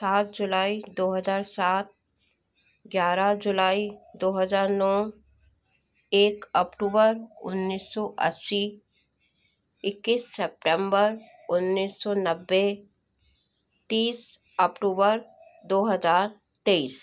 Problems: constant background noise